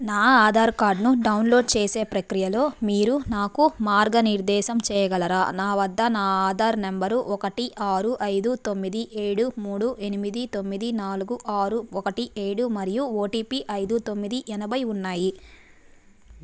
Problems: background sounds at intervals